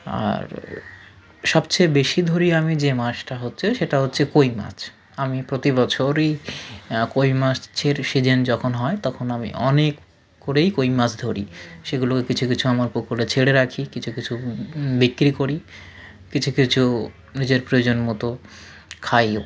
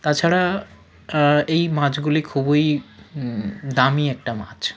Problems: none marked